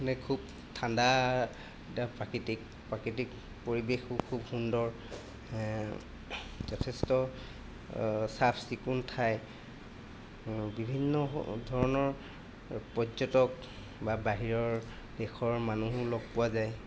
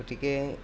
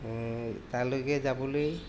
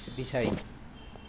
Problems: constant background noise